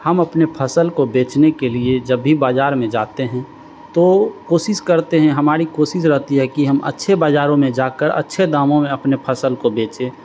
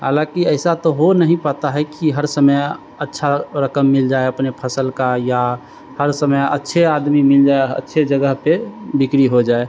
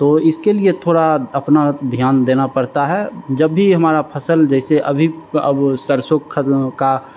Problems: constant background noise